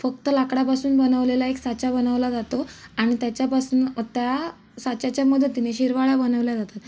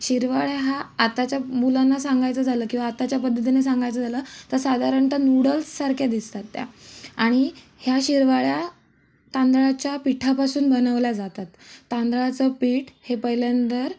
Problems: background sounds at intervals